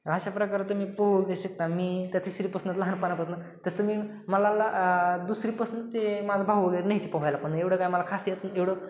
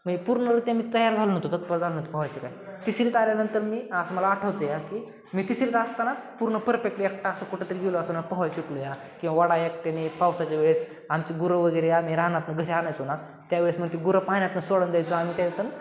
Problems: constant background noise